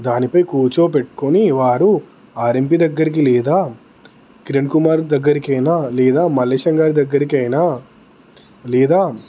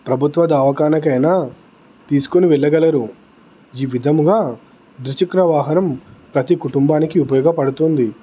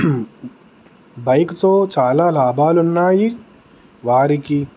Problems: constant background noise, background conversations at intervals